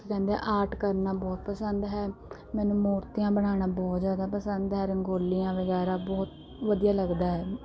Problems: background sounds at intervals